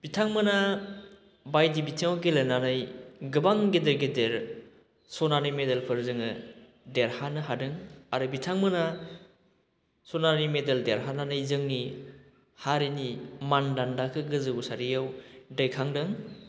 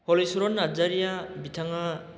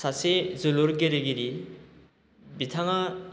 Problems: constant background noise